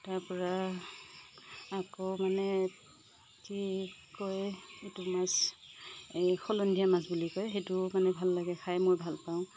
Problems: none marked